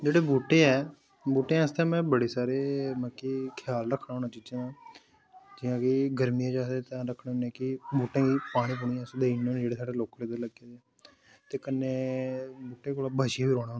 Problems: constant background noise